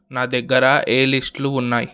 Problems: none marked